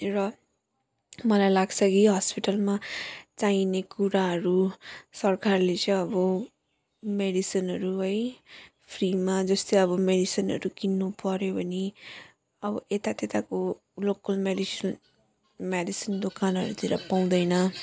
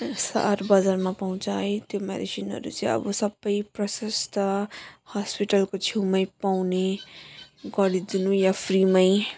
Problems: none marked